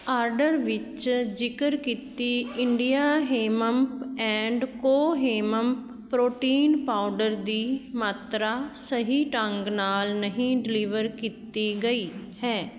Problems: background sounds at intervals